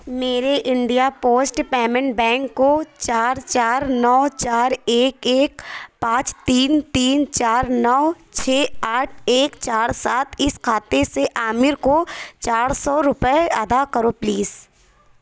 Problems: none marked